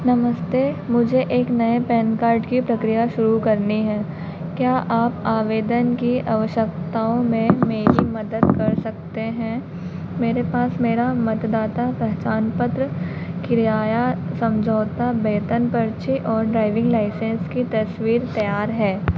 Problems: none marked